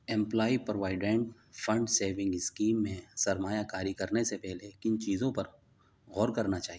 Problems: none marked